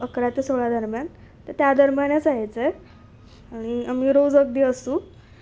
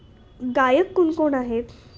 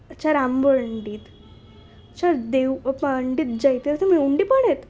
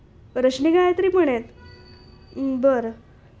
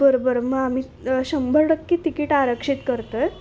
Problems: background sounds at intervals